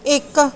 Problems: background sounds at intervals